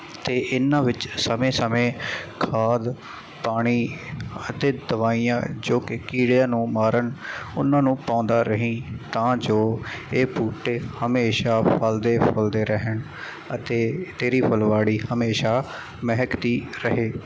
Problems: constant background noise